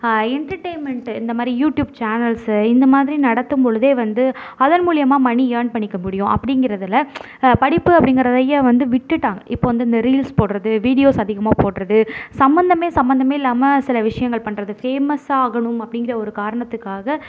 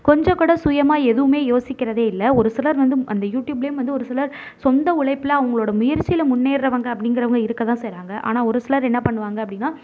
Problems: none marked